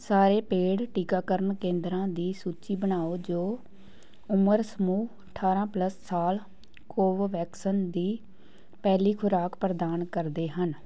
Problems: background sounds at intervals